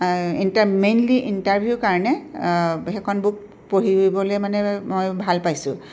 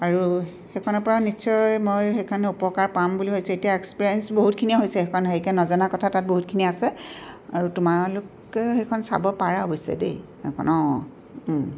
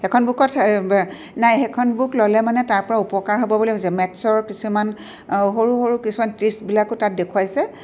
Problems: background sounds at intervals